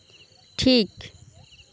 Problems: constant background noise